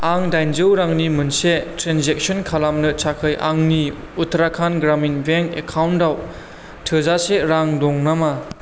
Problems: constant background noise